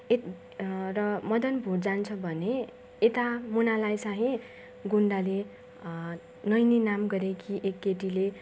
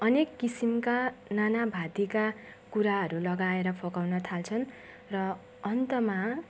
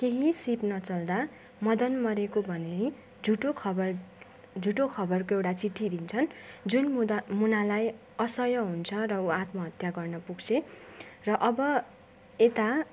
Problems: none marked